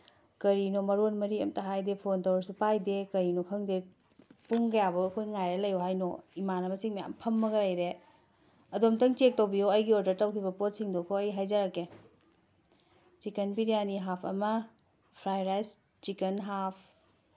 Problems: background sounds at intervals, background conversations at intervals